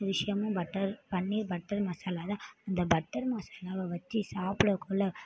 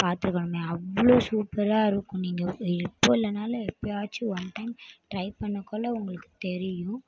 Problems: none marked